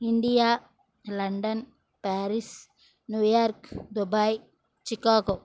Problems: background sounds at intervals